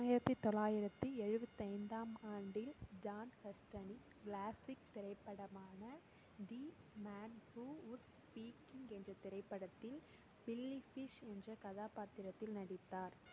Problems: low volume